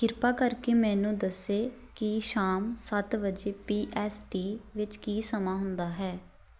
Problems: none marked